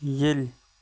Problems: background sounds at intervals